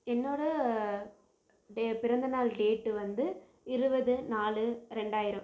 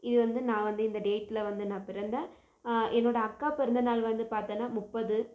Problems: low volume